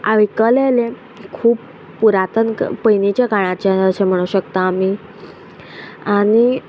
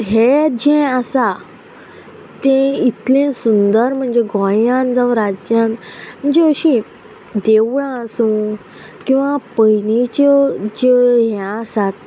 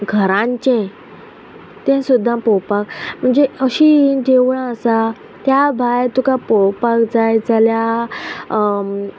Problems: none marked